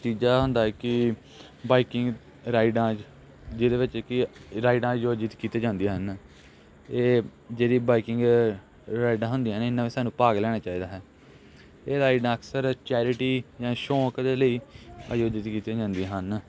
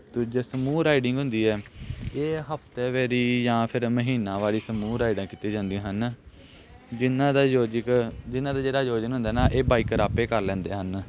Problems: constant background noise, background conversations at intervals